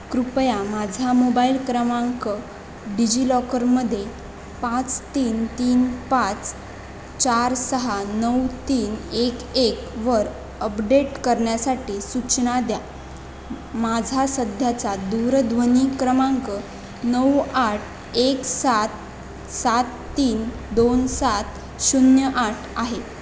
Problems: constant background noise